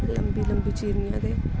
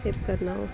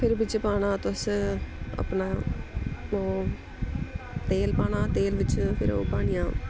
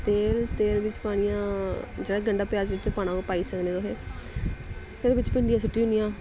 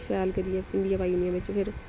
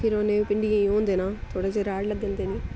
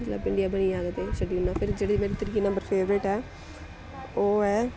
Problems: constant background noise